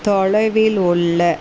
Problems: constant background noise